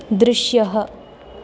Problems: constant background noise